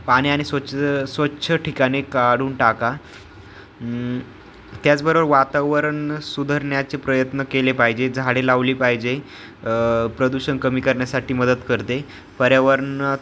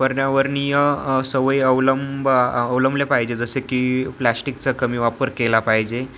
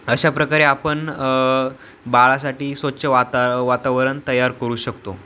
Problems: background sounds at intervals